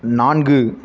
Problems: none marked